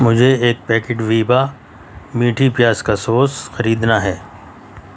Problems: constant background noise